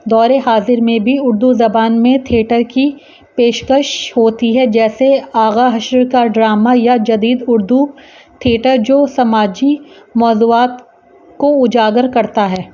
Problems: constant background noise